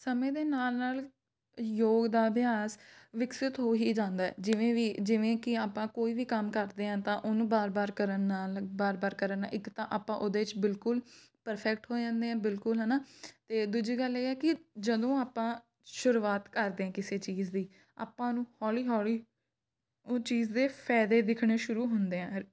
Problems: none marked